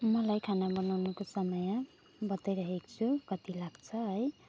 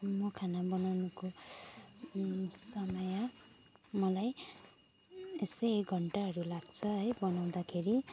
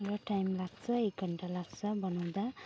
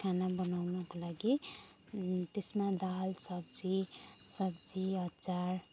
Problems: none marked